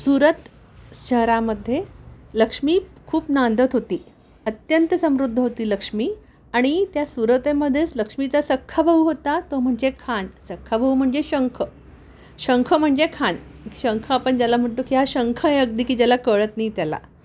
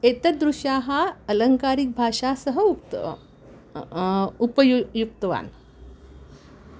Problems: none marked